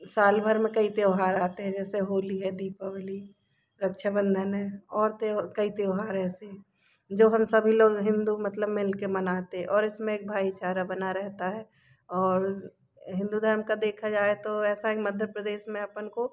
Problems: background sounds at intervals